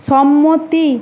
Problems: constant background noise